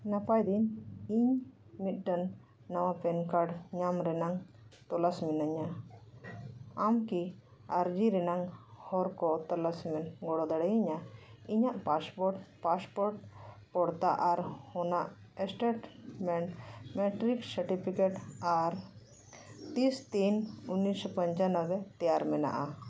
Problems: none marked